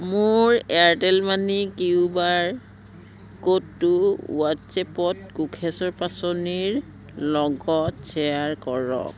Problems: constant background noise, background conversations at intervals